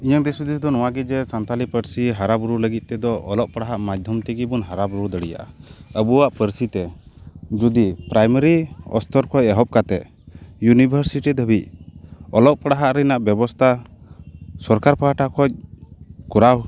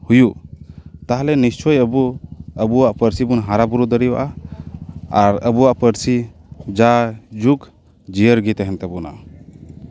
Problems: background sounds at intervals